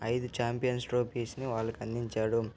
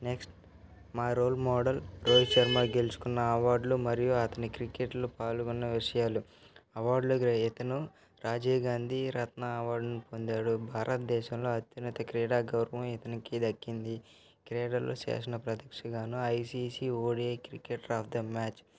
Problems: constant background noise, continuous background conversations